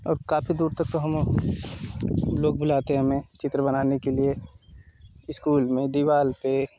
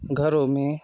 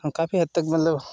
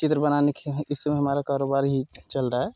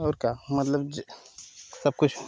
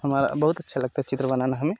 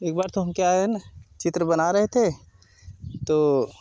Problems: constant background noise